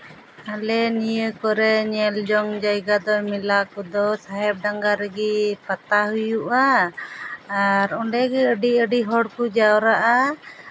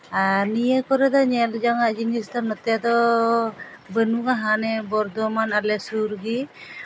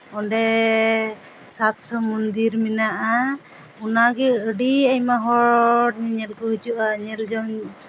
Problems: background sounds at intervals, background conversations at intervals